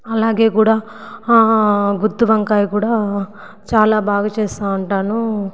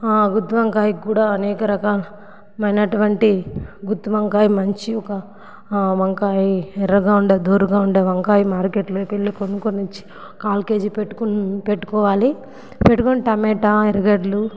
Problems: background sounds at intervals